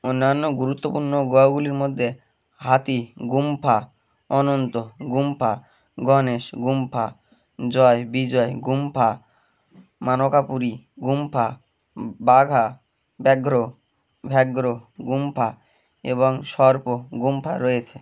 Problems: background sounds at intervals